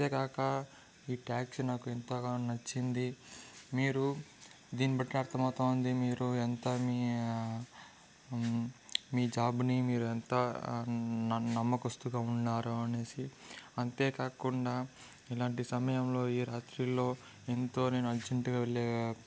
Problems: constant background noise